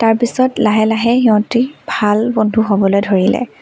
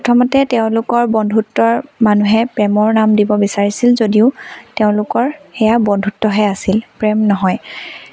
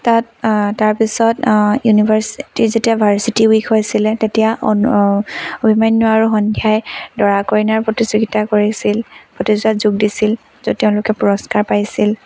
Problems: constant background noise